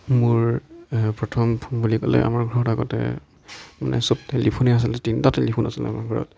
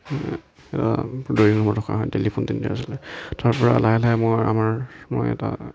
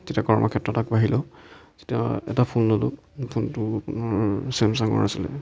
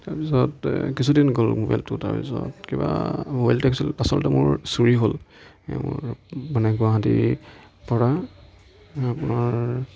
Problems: background conversations at intervals